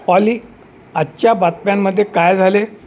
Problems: constant background noise